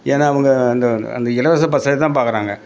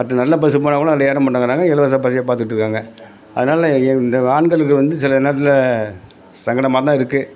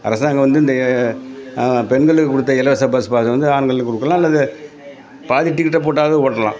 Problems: background conversations at intervals